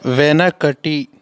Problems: none marked